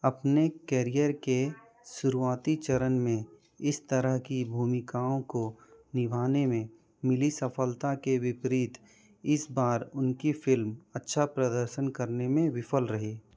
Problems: background sounds at intervals